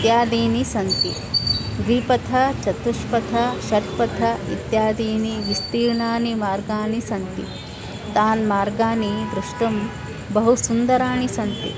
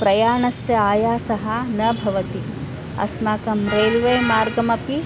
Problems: none marked